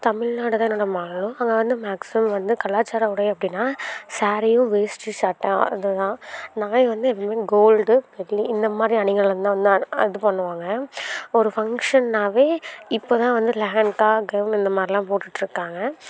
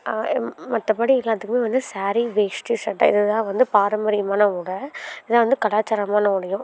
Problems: continuous background conversations